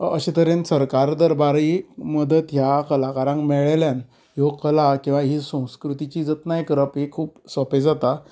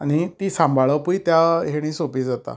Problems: none marked